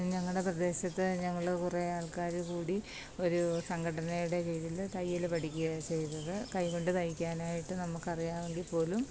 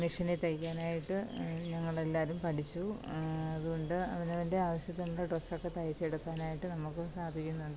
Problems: constant background noise